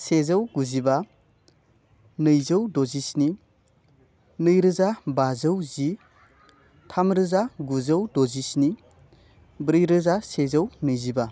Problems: none marked